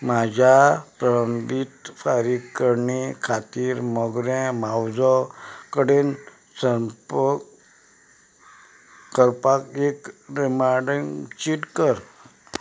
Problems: background sounds at intervals